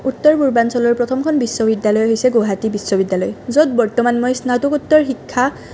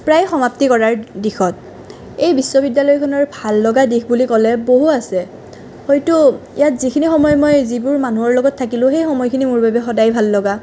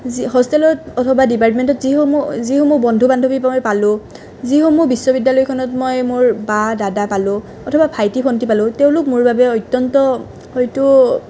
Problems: constant background noise